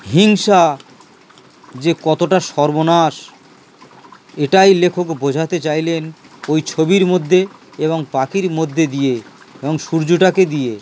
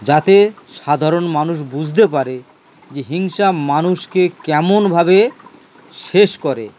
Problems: constant background noise